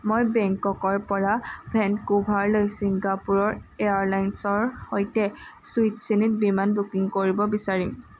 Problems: constant background noise